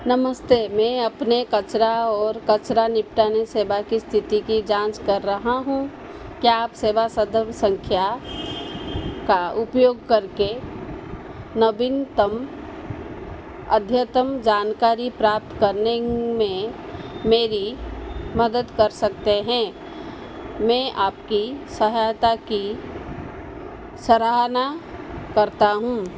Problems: constant background noise